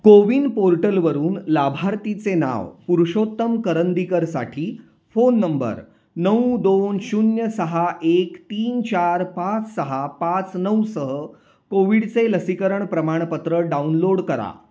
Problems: constant background noise